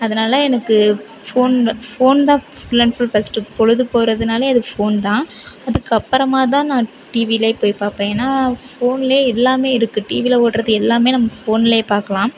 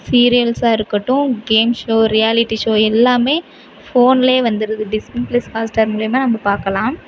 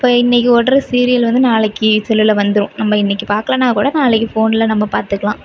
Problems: background sounds at intervals, background conversations at intervals, low volume